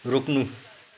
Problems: none marked